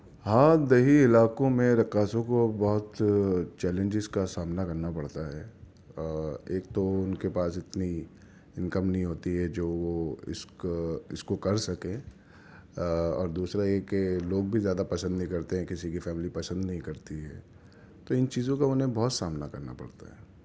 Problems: none marked